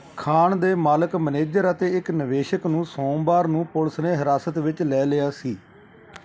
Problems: background sounds at intervals